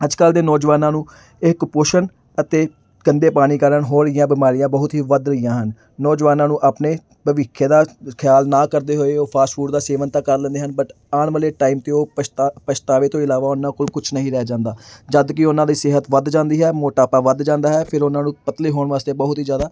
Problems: background sounds at intervals